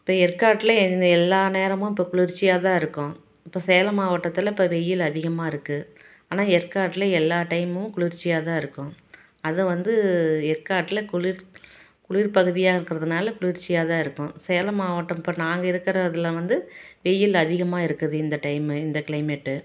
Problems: none marked